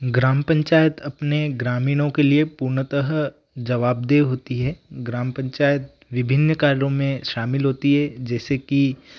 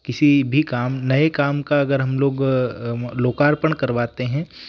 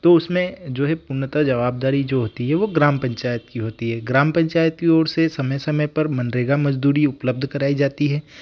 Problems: background sounds at intervals